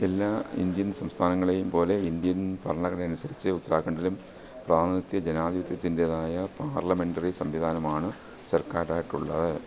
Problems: constant background noise